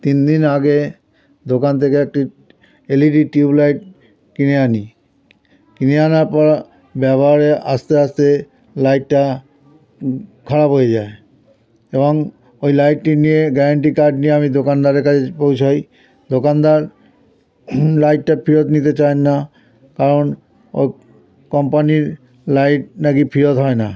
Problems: continuous background conversations